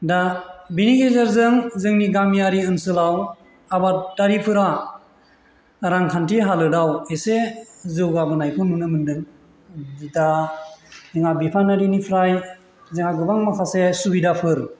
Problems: none marked